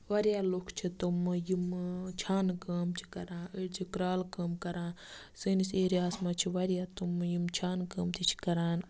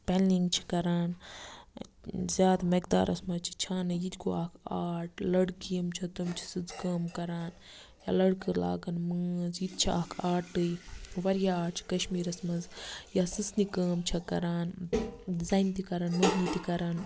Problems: constant background noise